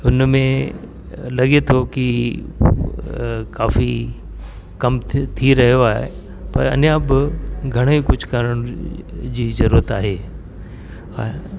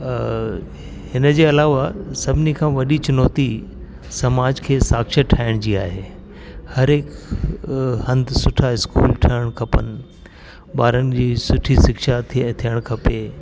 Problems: constant background noise